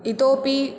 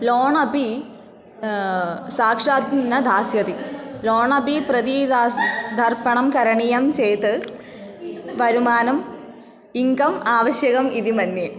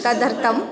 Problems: constant background noise